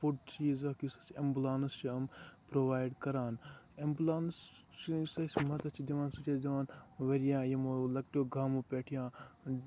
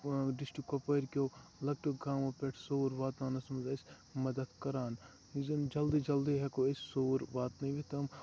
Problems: constant background noise, low volume